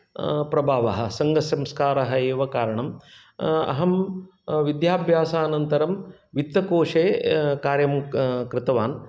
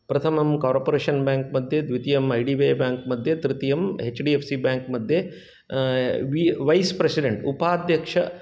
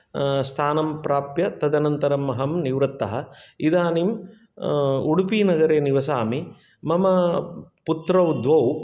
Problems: none marked